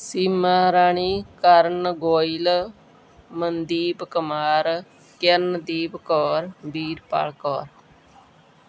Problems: background sounds at intervals